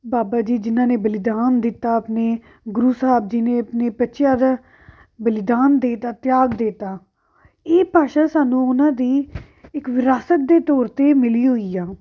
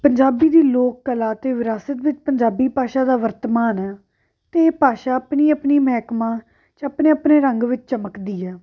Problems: background sounds at intervals